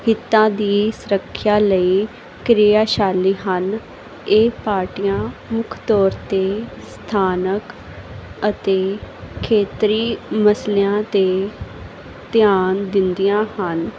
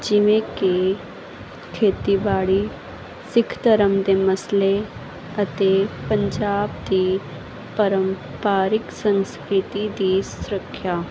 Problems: constant background noise